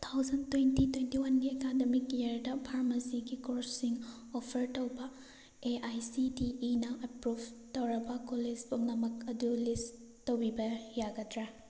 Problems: none marked